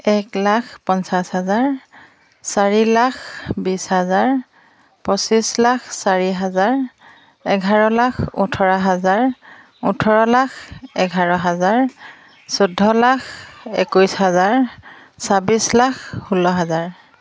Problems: background sounds at intervals